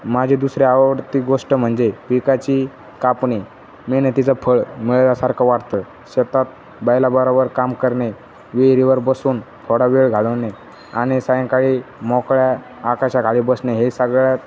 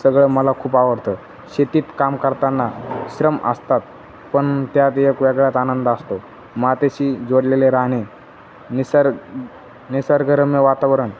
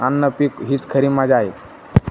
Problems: none marked